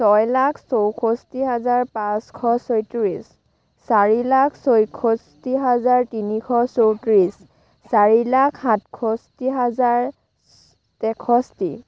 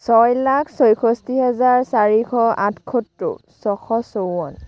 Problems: background conversations at intervals